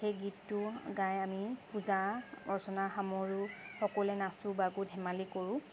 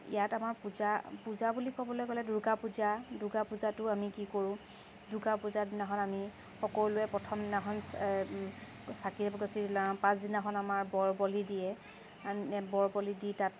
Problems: constant background noise, background conversations at intervals